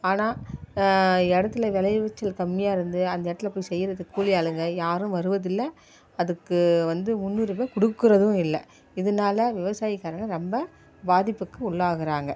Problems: background sounds at intervals